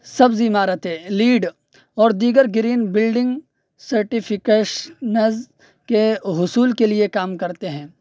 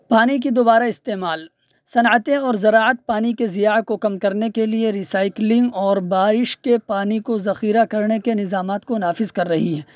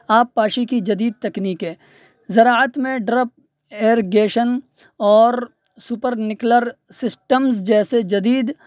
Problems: none marked